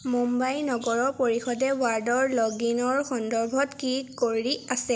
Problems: none marked